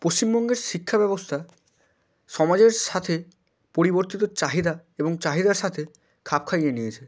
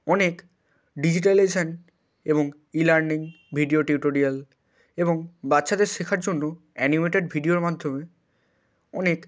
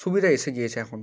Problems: constant background noise